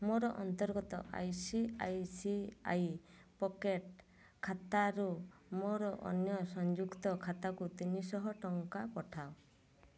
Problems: low volume